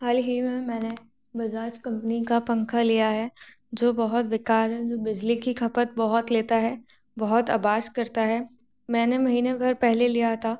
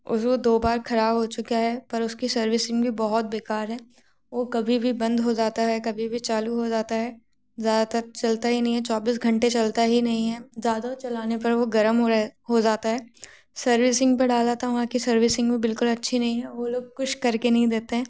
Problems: constant background noise